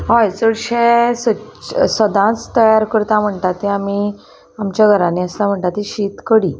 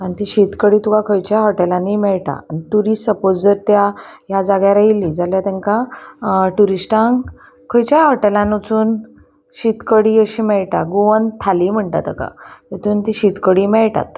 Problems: constant background noise